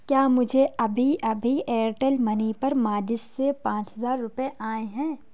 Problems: none marked